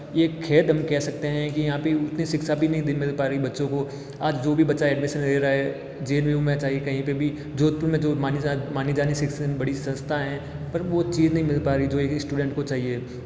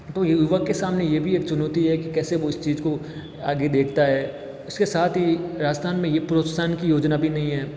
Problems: echo